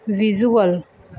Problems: background sounds at intervals